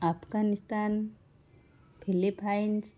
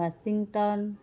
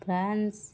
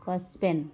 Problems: constant background noise, continuous background conversations